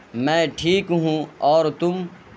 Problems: constant background noise